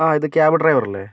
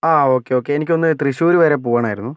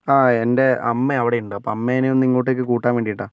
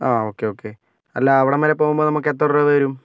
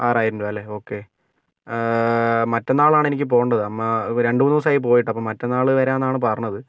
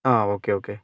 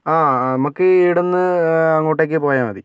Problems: none marked